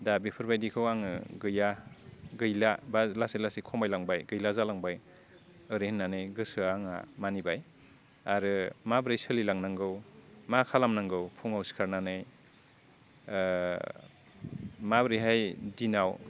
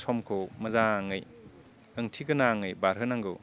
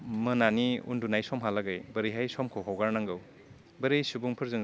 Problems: none marked